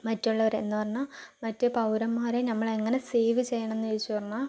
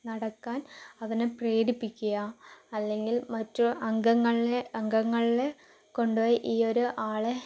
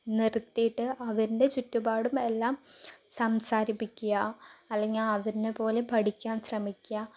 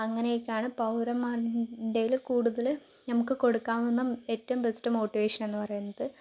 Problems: low volume